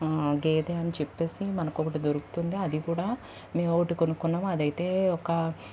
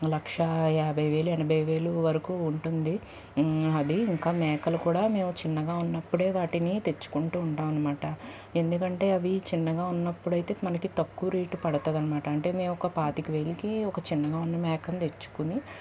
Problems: none marked